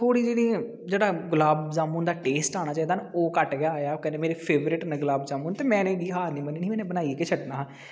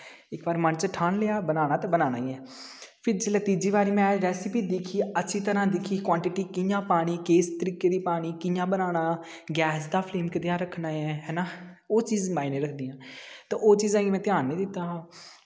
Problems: background sounds at intervals, echo